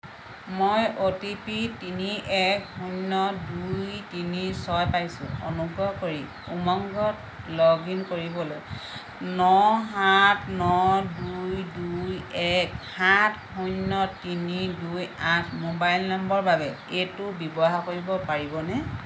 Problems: constant background noise